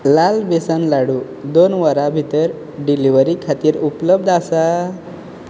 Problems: none marked